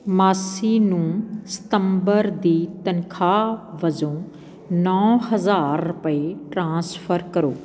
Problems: background sounds at intervals